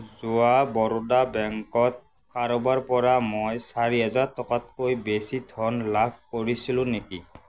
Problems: constant background noise